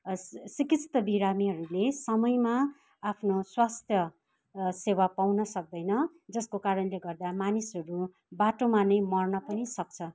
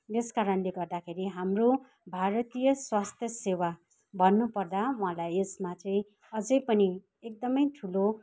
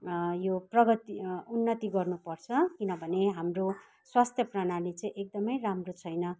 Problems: background sounds at intervals